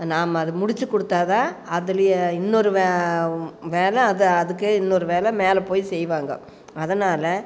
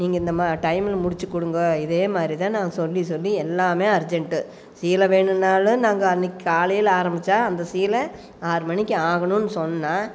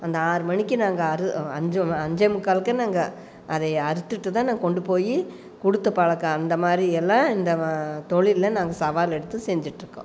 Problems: none marked